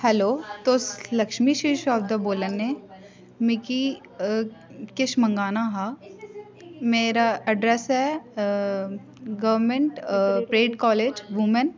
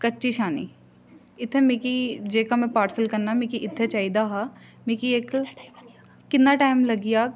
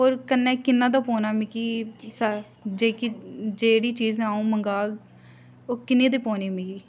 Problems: constant background noise, background conversations at intervals